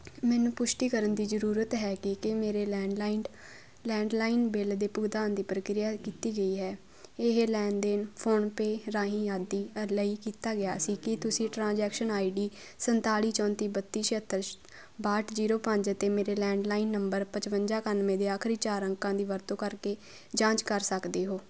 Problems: constant background noise